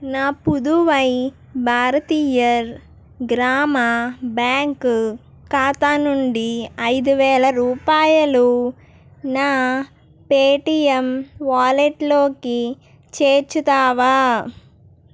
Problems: none marked